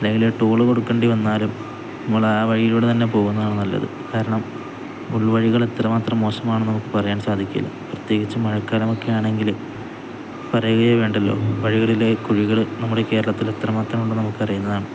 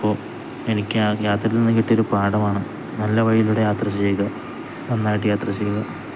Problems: none marked